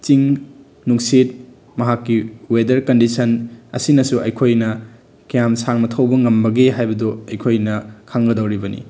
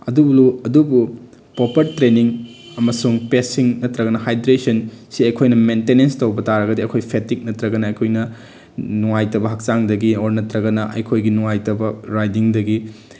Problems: none marked